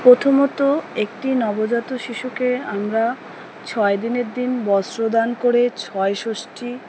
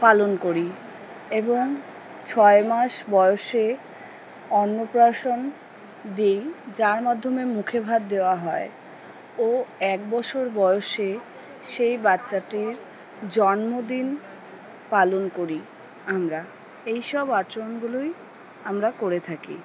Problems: background sounds at intervals, background conversations at intervals